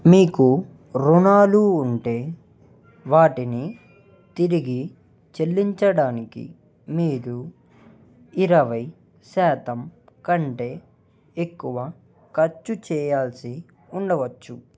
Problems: background sounds at intervals